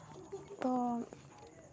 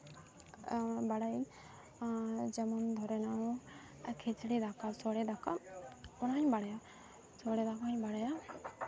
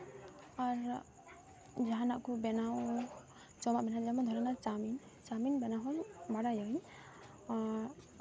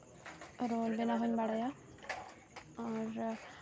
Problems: constant background noise, background conversations at intervals